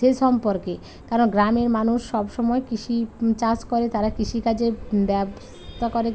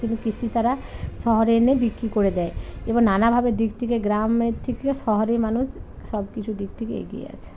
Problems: constant background noise, continuous background conversations